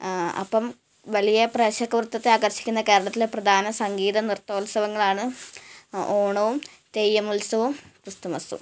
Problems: background sounds at intervals, low volume